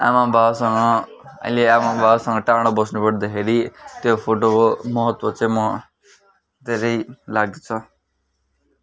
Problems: none marked